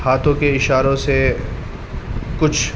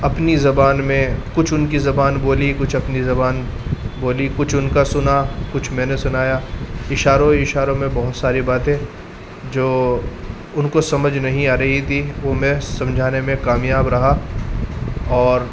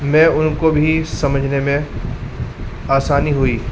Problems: constant background noise